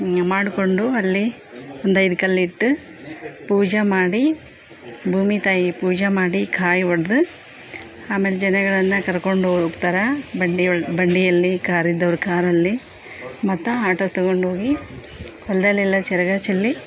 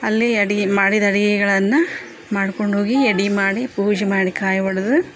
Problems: background sounds at intervals, background conversations at intervals